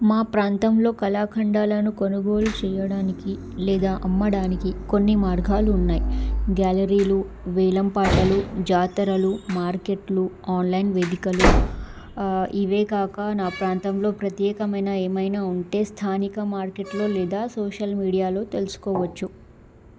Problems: background sounds at intervals